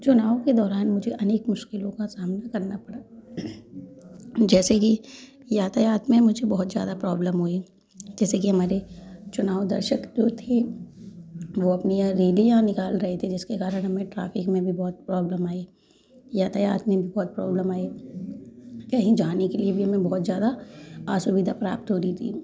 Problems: background sounds at intervals, background conversations at intervals